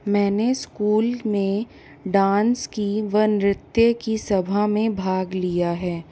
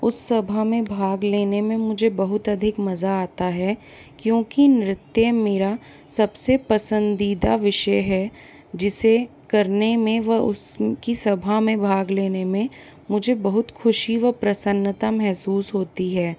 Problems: constant background noise